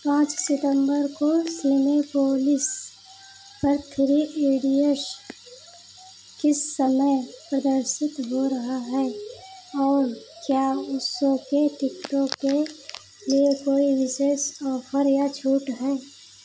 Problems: none marked